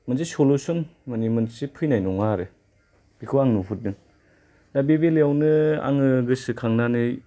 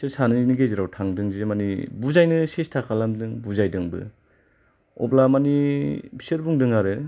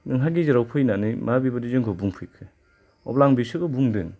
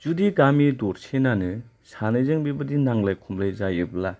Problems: low volume